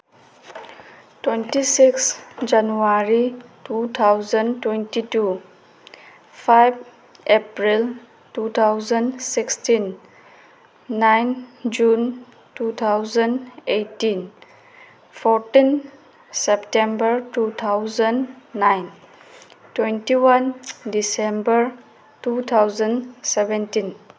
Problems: background sounds at intervals